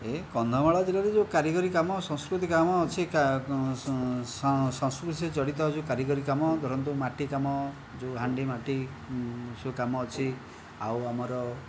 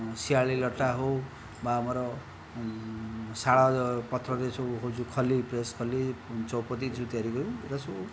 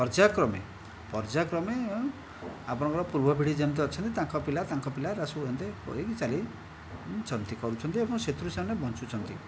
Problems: background conversations at intervals